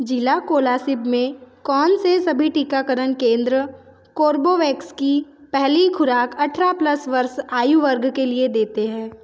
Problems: none marked